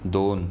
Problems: background sounds at intervals